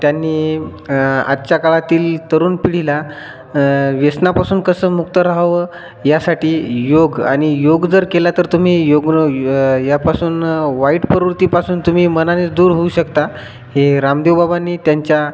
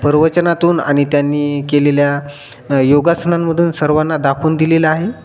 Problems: constant background noise